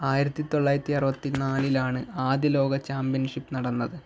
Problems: none marked